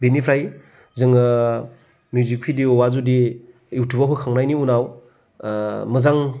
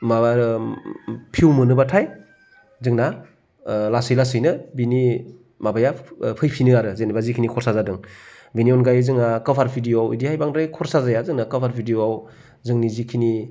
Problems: low volume